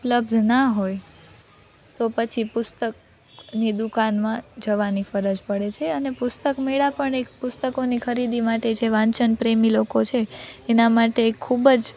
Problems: none marked